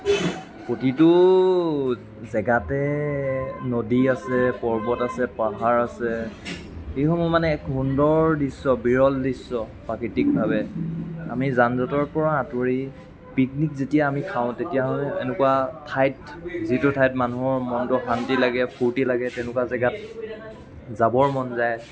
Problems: constant background noise